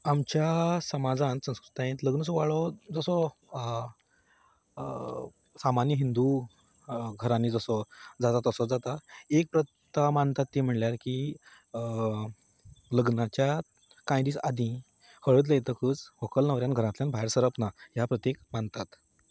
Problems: none marked